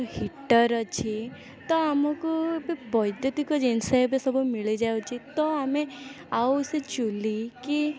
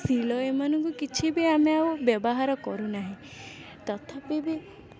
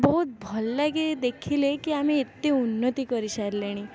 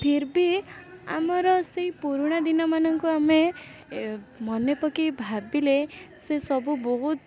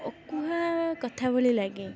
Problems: none marked